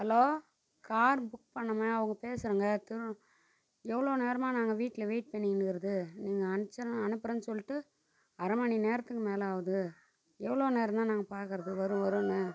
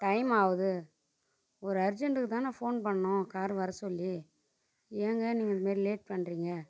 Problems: constant background noise, low volume